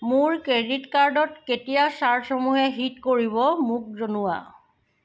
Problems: background sounds at intervals